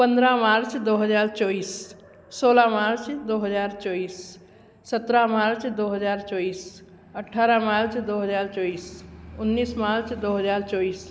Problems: constant background noise